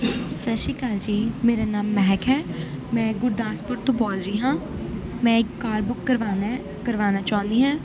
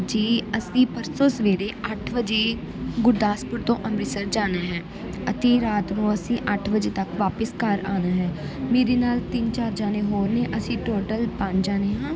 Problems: background sounds at intervals